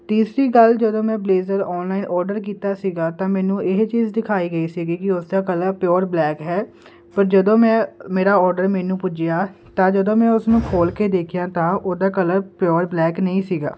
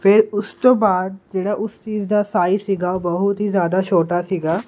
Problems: constant background noise